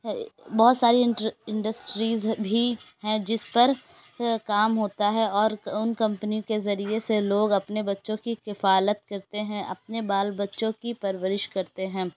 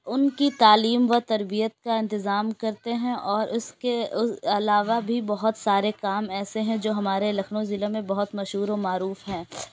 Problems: constant background noise